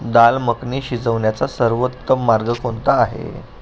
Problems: none marked